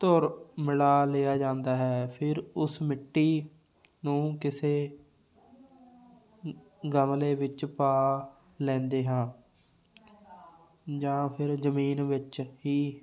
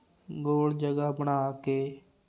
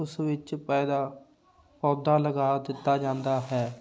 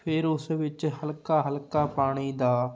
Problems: background sounds at intervals